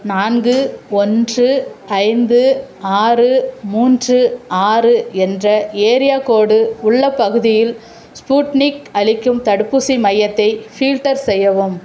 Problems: constant background noise, background conversations at intervals